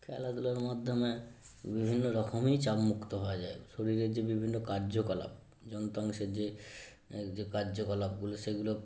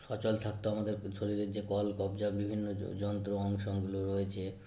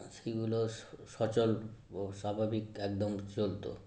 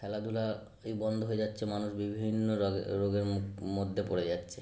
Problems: background sounds at intervals